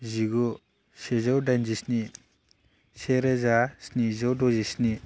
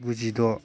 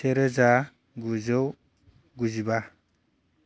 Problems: constant background noise